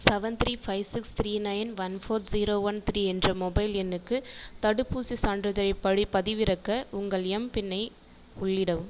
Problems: echo